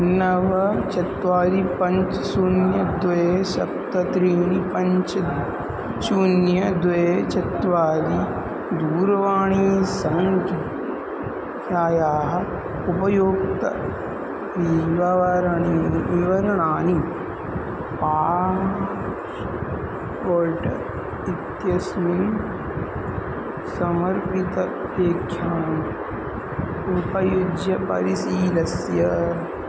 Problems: constant background noise